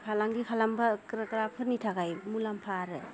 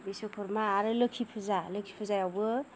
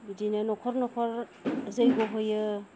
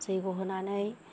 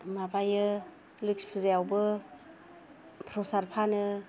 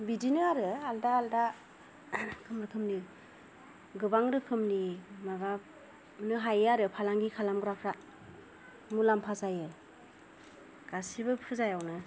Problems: low volume